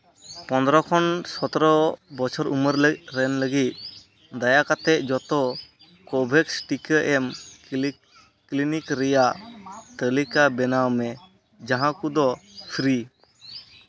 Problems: constant background noise